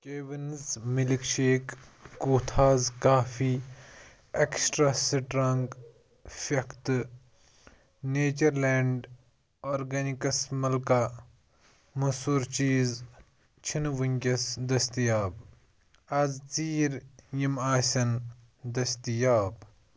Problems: background sounds at intervals